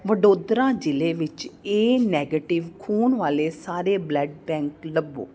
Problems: background conversations at intervals